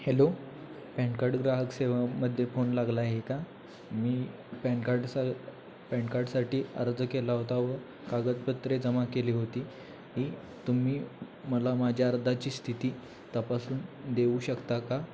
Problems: constant background noise, background conversations at intervals